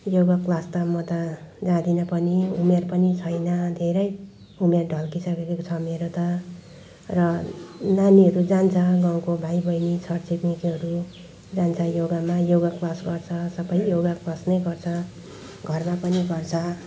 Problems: background sounds at intervals, background conversations at intervals